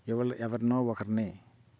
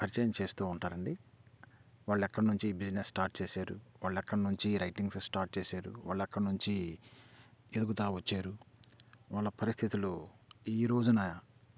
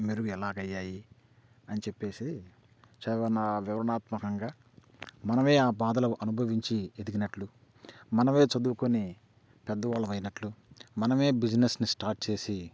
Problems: none marked